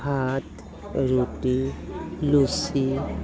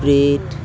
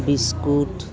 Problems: none marked